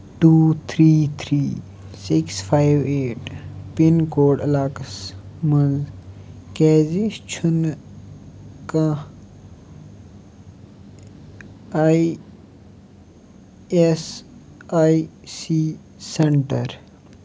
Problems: background sounds at intervals